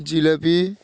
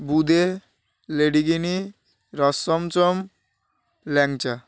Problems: none marked